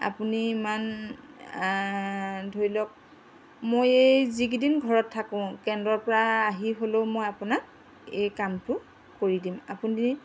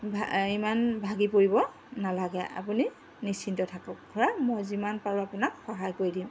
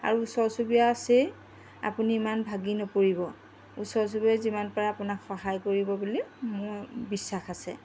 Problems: constant background noise